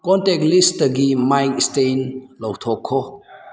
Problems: none marked